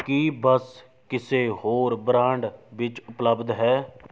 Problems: background sounds at intervals